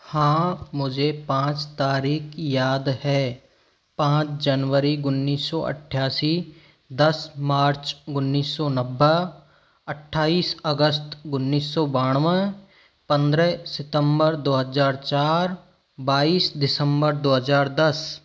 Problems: none marked